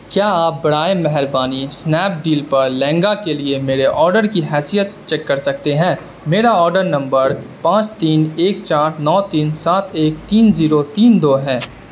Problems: constant background noise